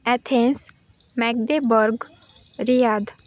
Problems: constant background noise, continuous background conversations